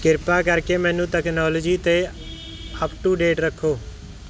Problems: background sounds at intervals